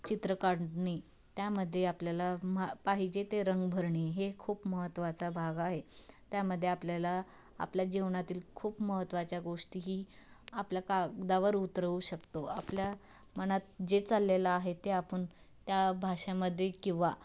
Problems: background sounds at intervals